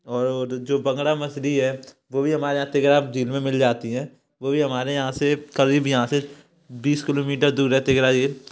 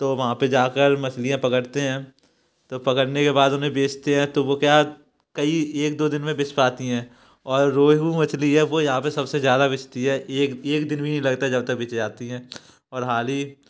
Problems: background sounds at intervals